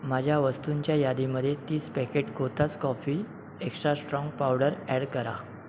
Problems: constant background noise